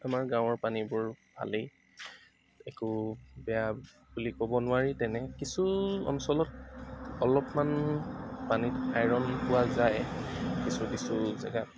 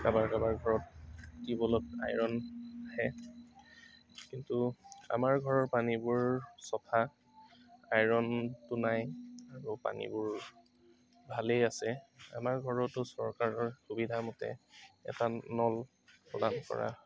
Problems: background sounds at intervals, background conversations at intervals